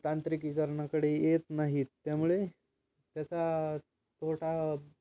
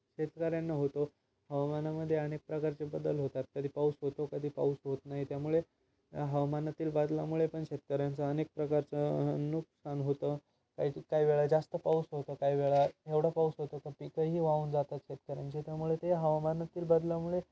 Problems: none marked